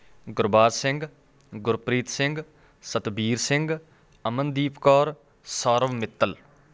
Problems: none marked